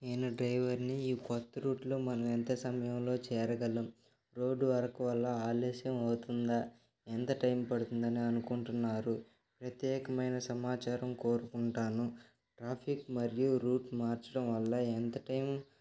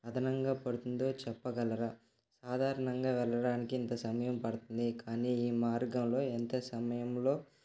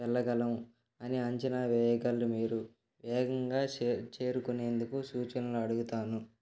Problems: none marked